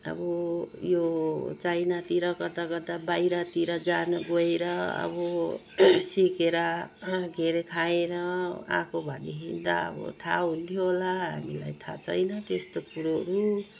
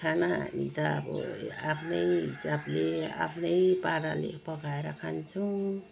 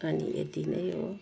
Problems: low volume